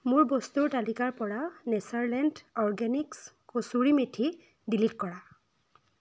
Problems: none marked